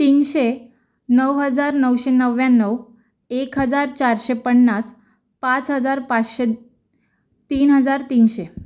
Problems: background sounds at intervals